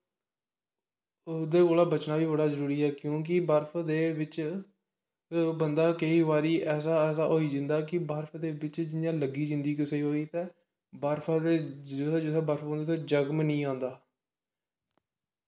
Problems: background sounds at intervals, echo